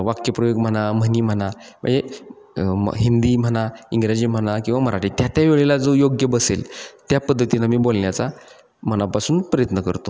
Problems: constant background noise, echo